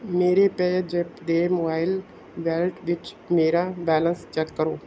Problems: none marked